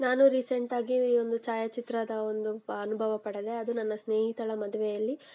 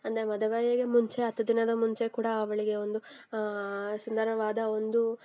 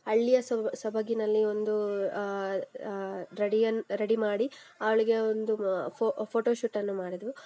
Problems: none marked